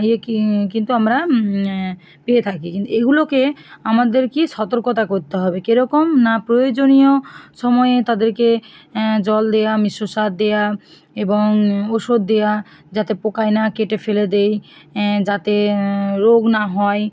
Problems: background sounds at intervals